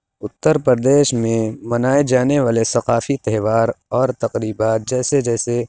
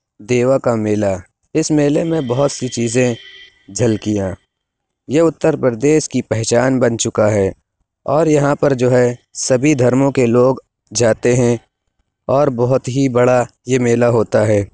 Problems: none marked